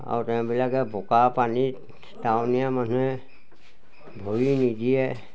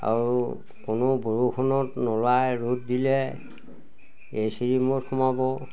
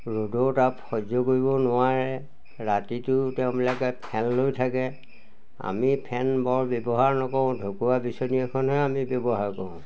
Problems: none marked